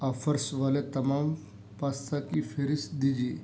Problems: background sounds at intervals